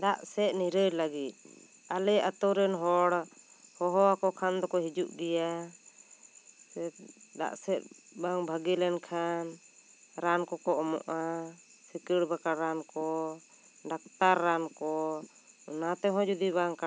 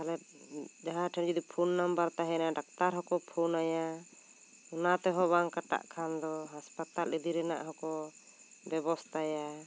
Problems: constant background noise